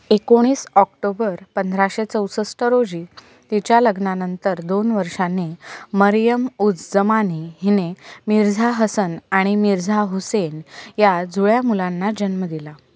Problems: none marked